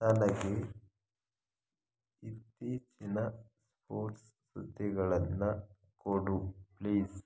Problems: none marked